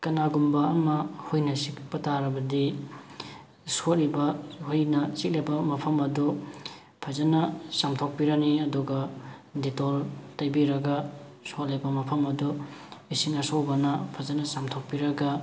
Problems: background sounds at intervals